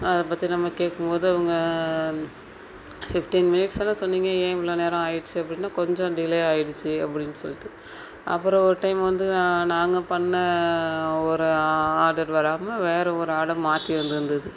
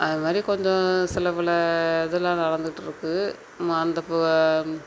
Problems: none marked